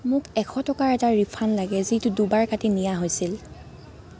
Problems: constant background noise, continuous background conversations